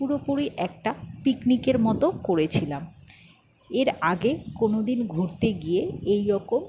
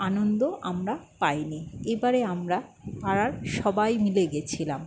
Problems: none marked